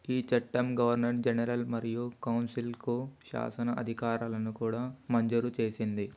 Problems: none marked